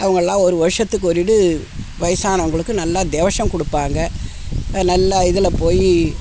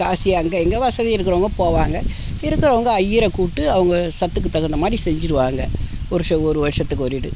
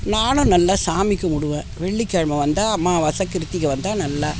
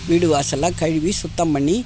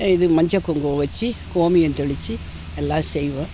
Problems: background sounds at intervals